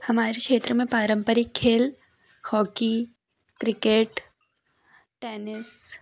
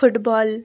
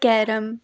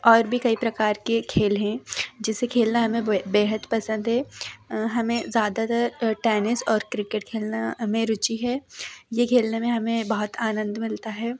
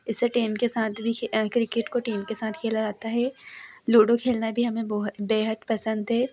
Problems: background sounds at intervals, background conversations at intervals